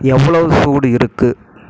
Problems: constant background noise